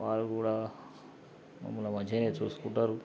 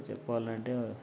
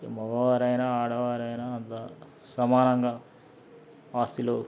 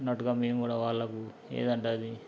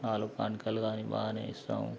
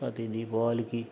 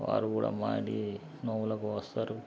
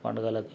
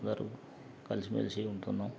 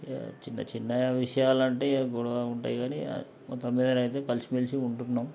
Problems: background sounds at intervals, background conversations at intervals